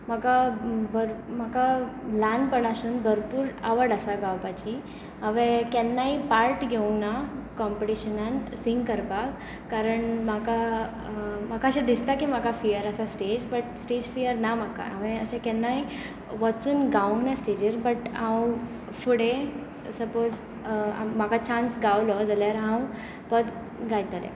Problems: none marked